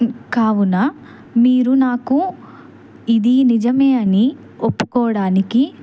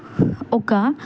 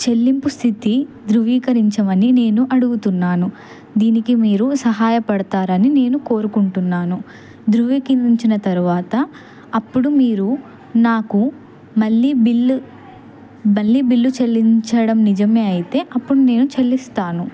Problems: background conversations at intervals